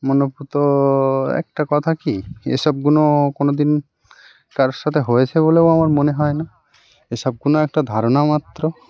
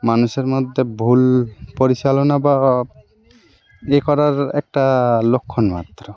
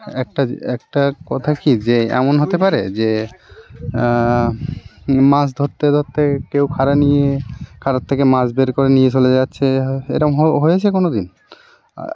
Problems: constant background noise, background conversations at intervals